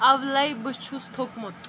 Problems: constant background noise